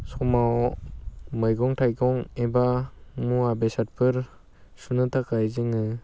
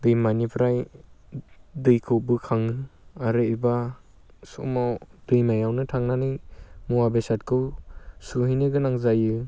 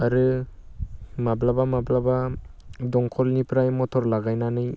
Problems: constant background noise